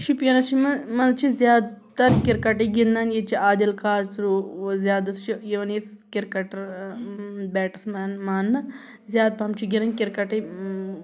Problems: background sounds at intervals